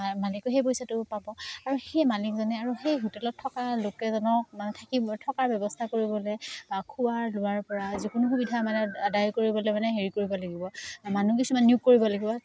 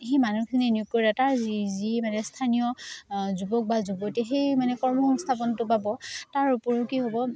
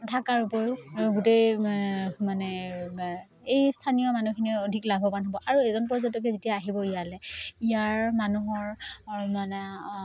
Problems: background sounds at intervals